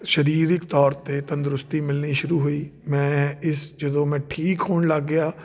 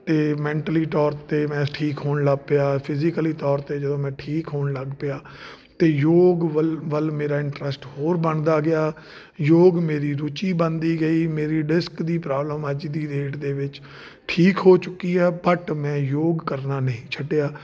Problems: none marked